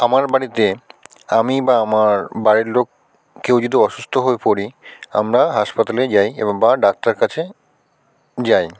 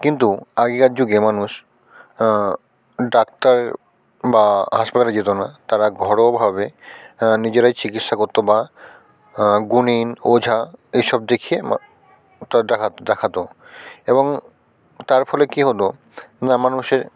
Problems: constant background noise, continuous background conversations